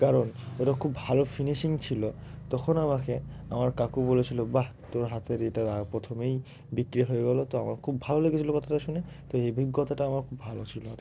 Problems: none marked